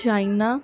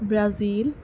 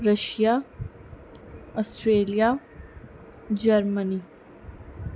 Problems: background sounds at intervals